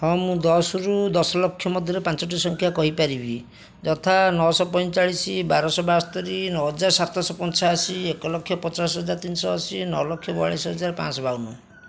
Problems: none marked